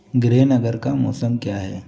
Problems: none marked